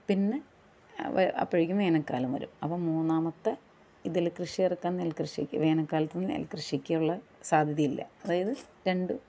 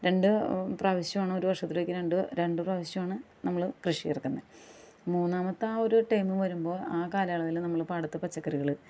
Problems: background sounds at intervals